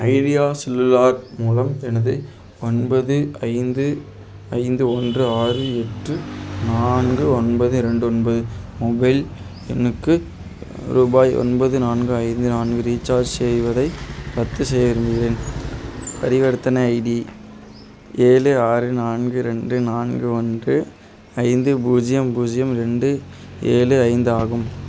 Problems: constant background noise